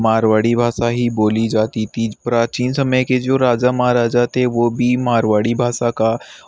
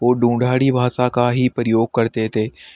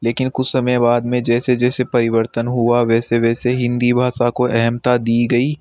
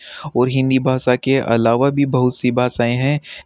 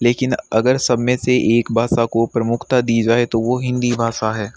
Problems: background sounds at intervals